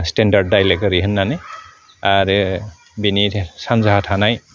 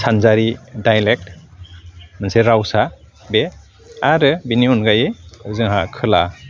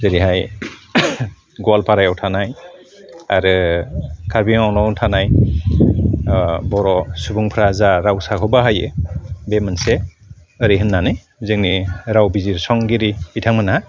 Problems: constant background noise